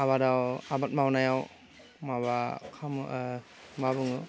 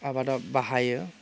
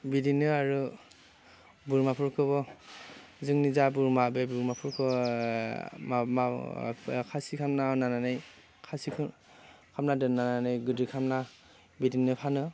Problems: constant background noise